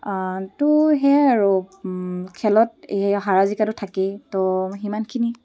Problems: background sounds at intervals